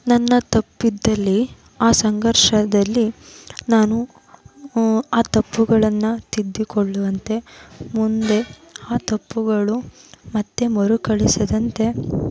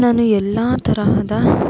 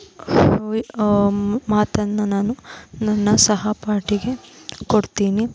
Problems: constant background noise, background conversations at intervals